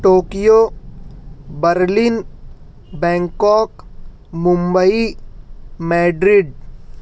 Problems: none marked